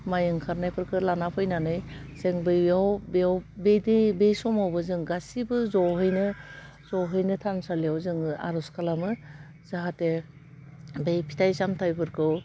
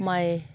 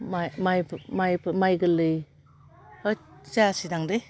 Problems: none marked